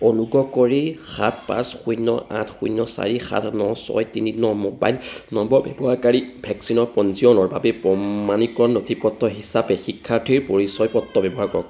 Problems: constant background noise